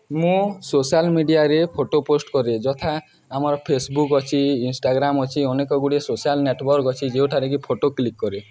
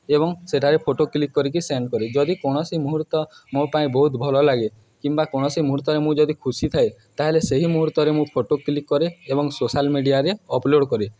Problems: background sounds at intervals, continuous background conversations